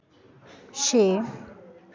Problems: background sounds at intervals